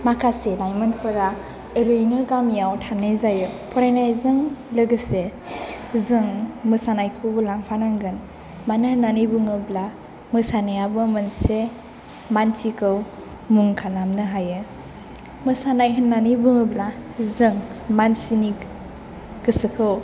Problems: none marked